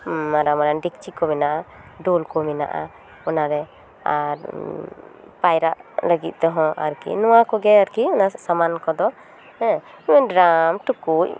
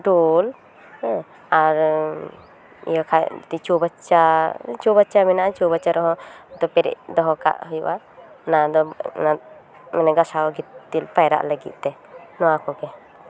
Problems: background sounds at intervals